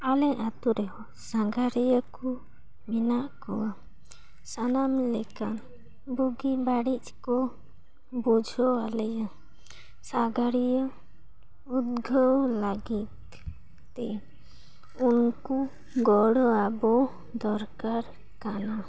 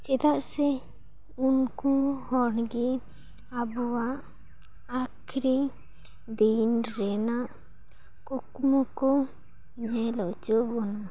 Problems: none marked